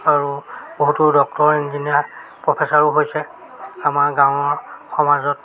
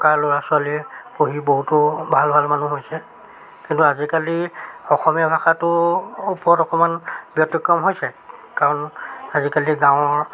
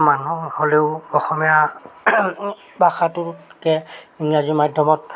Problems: constant background noise